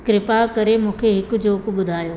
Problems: constant background noise, echo